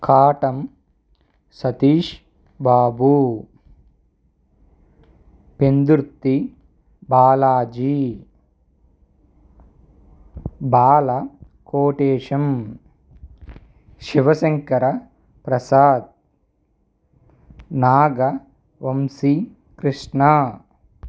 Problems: none marked